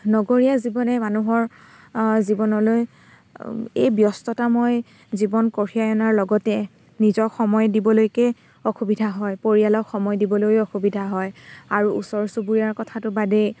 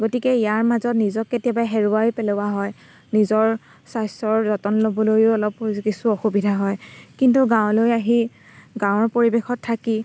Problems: constant background noise